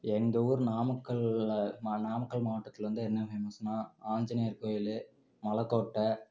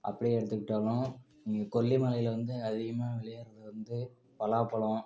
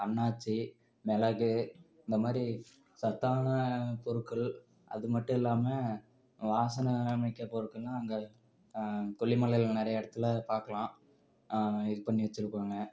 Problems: none marked